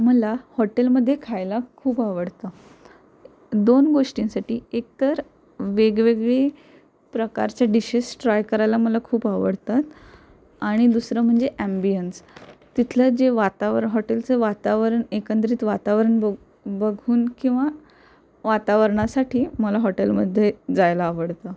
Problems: constant background noise